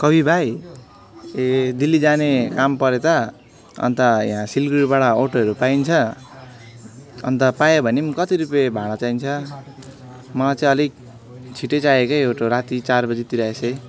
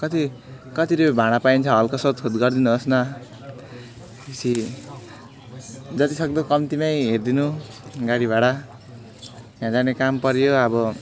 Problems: constant background noise, continuous background conversations